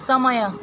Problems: constant background noise